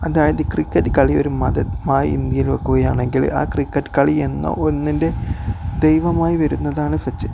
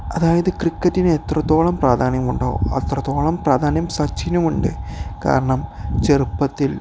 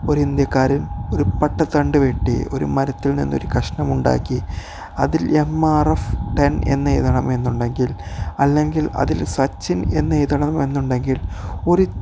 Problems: background sounds at intervals